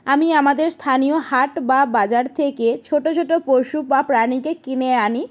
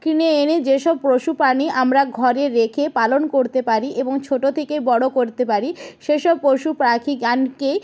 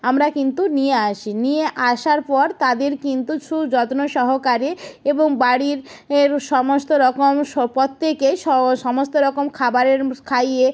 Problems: none marked